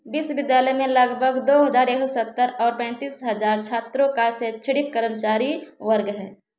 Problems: background sounds at intervals